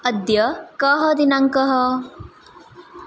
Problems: background sounds at intervals